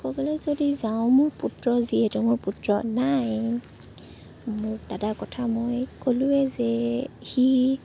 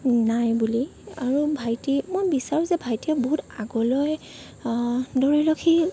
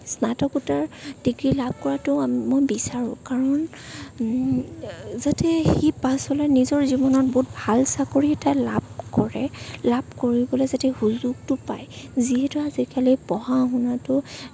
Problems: none marked